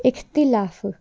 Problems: none marked